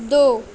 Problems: constant background noise